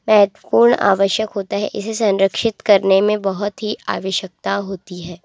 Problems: constant background noise